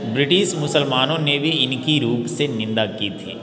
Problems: constant background noise, background conversations at intervals